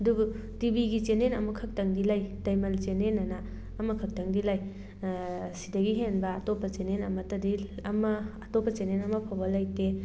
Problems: background sounds at intervals